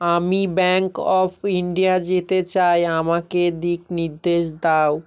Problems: none marked